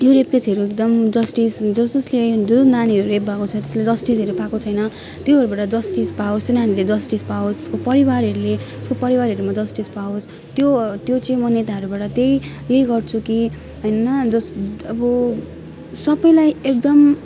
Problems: background sounds at intervals